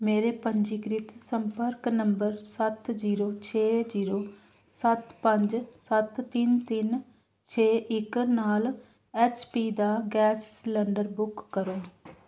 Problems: none marked